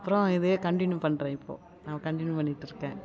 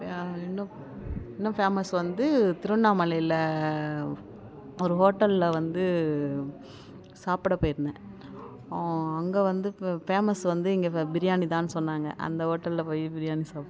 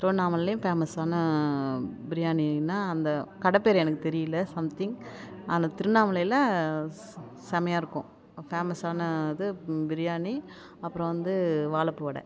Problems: none marked